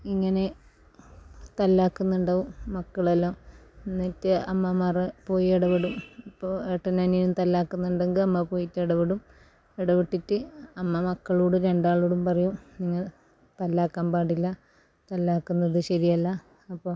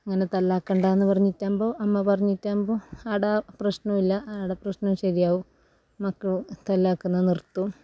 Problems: low volume